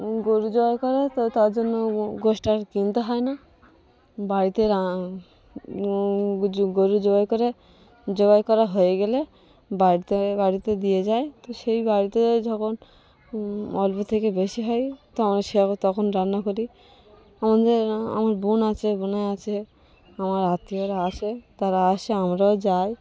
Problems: none marked